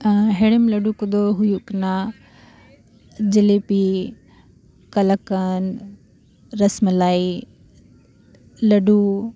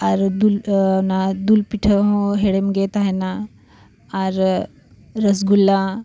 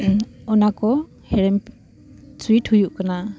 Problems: background sounds at intervals